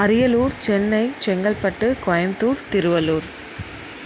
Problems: none marked